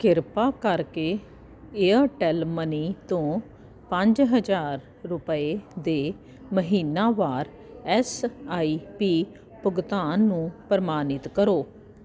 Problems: constant background noise